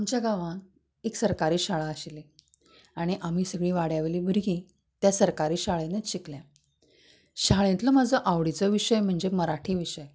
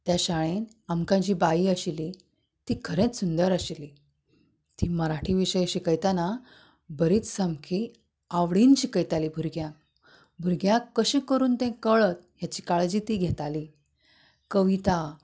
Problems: none marked